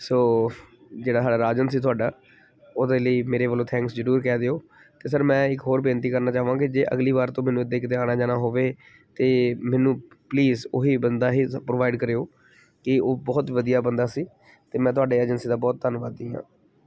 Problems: background sounds at intervals